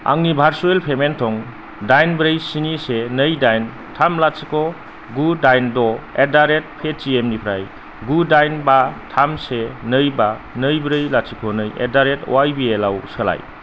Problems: constant background noise, low volume